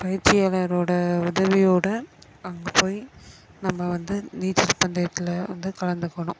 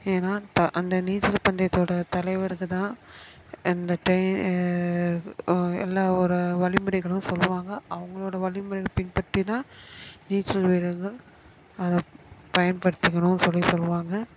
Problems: constant background noise, background conversations at intervals